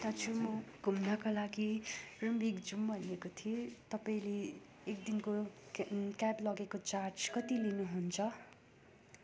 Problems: background sounds at intervals